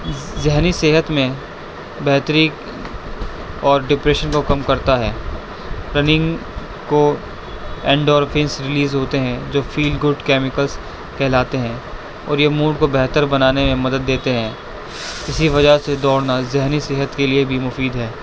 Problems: constant background noise